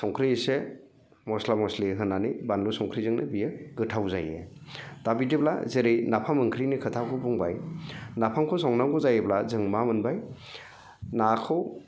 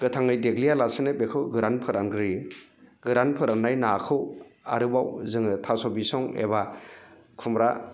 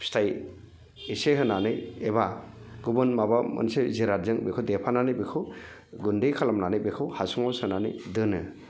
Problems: none marked